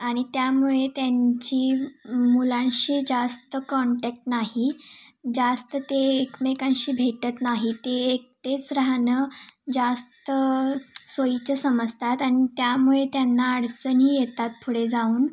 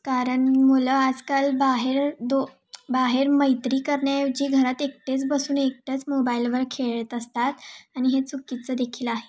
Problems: constant background noise, background conversations at intervals